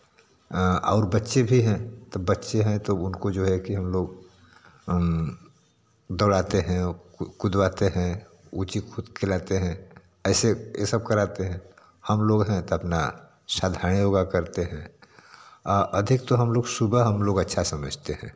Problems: constant background noise